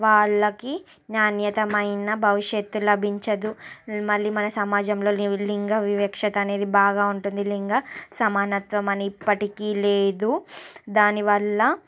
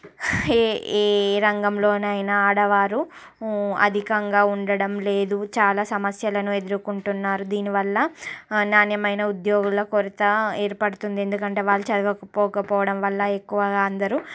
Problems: constant background noise, background conversations at intervals